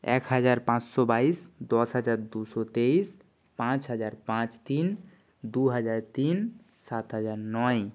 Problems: none marked